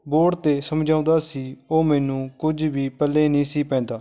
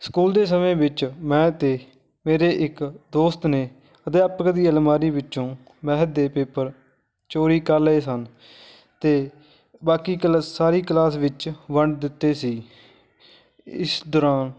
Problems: background sounds at intervals, continuous background conversations